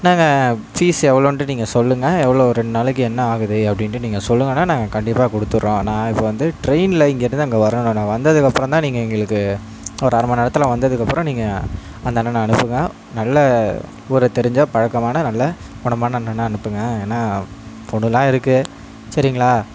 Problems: background sounds at intervals